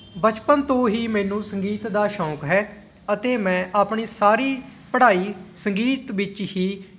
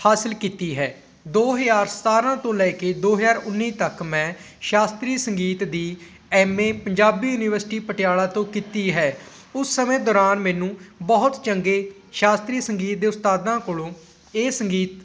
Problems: background sounds at intervals